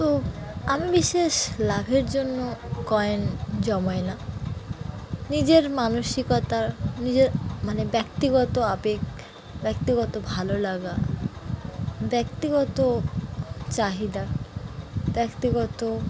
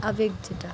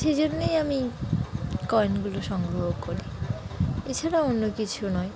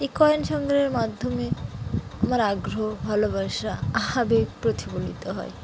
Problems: background sounds at intervals